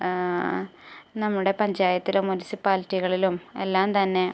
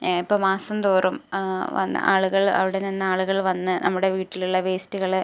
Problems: low volume